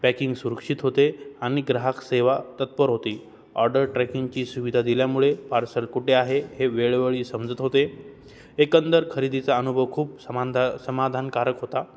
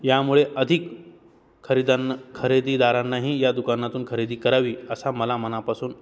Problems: none marked